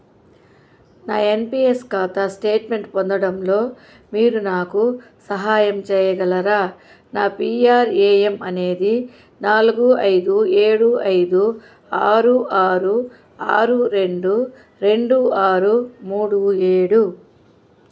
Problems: constant background noise